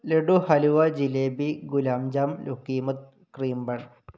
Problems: none marked